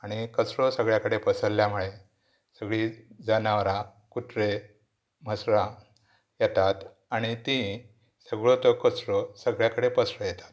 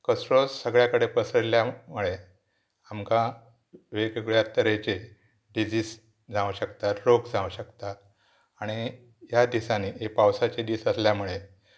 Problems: background sounds at intervals